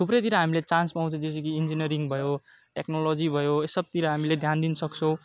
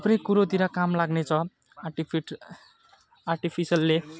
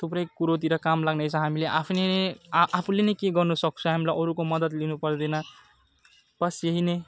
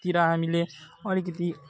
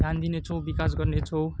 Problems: none marked